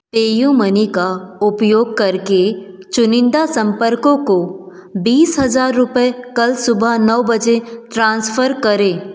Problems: echo